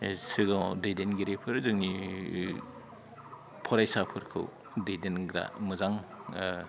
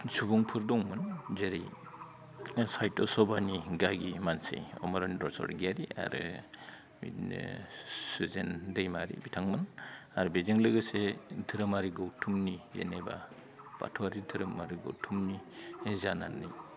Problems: none marked